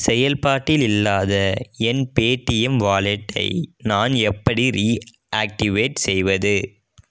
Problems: none marked